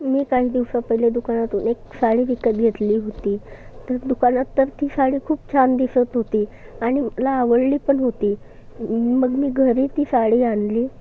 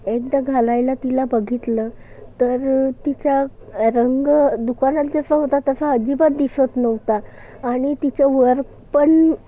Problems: constant background noise, background conversations at intervals